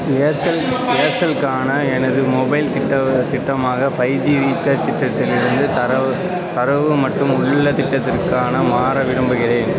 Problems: constant background noise, continuous background conversations